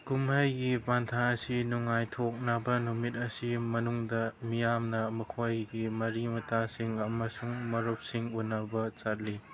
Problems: background sounds at intervals